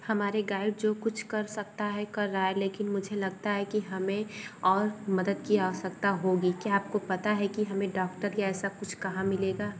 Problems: none marked